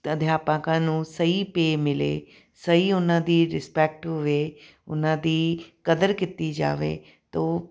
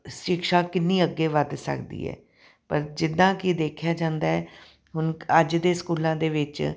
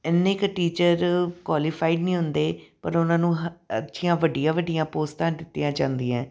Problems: background sounds at intervals